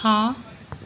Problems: constant background noise